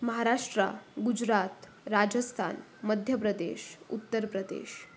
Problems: constant background noise